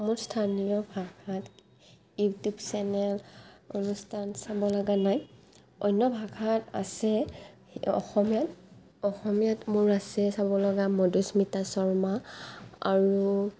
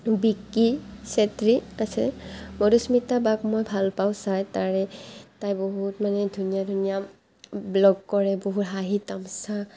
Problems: constant background noise